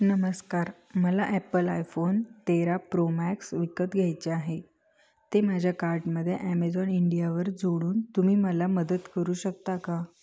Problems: constant background noise, background conversations at intervals